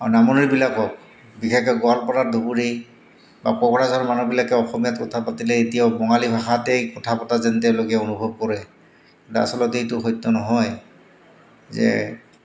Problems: constant background noise